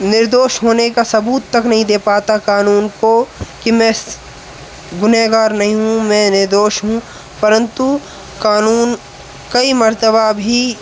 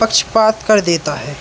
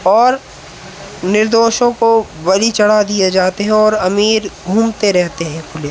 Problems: constant background noise